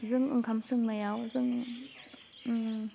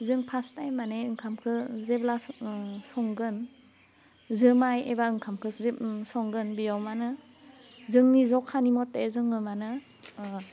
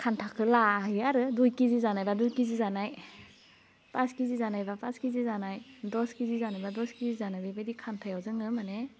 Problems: background sounds at intervals, low volume